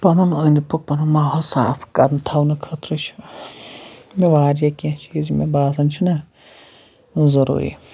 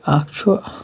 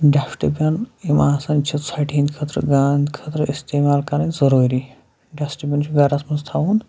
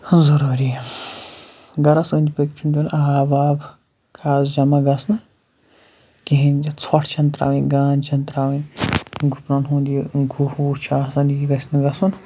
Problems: none marked